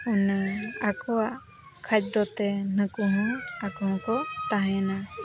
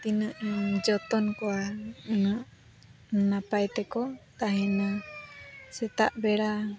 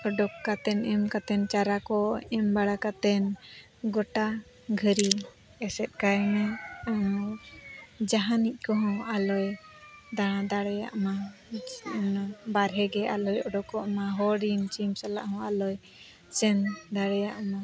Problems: constant background noise, continuous background conversations